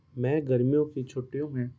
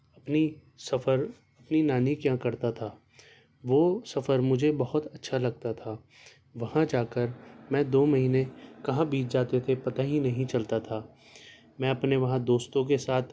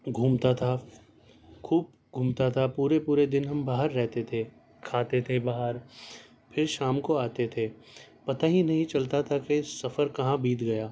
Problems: none marked